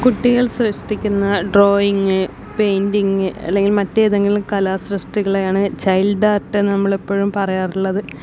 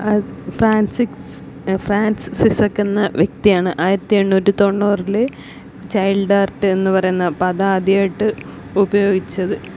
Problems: background sounds at intervals